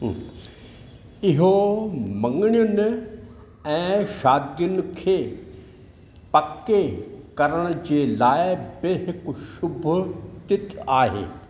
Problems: none marked